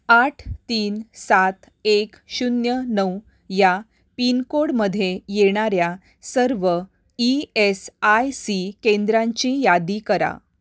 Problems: none marked